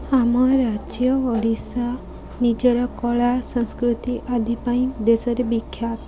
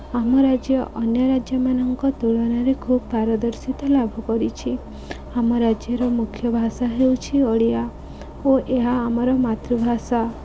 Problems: constant background noise, continuous background conversations